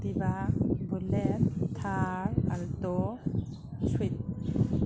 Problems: constant background noise